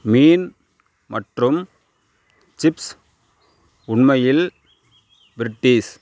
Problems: none marked